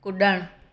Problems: none marked